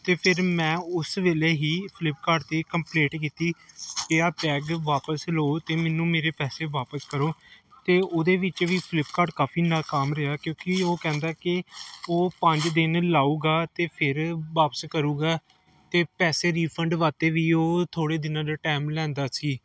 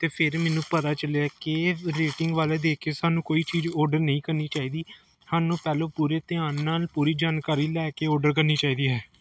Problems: none marked